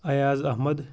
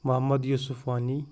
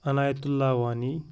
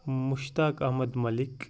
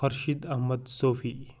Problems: background sounds at intervals